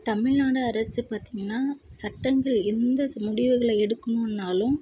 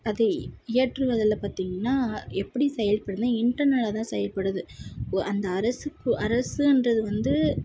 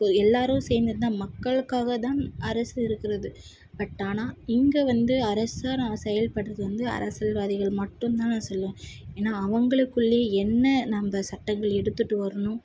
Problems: none marked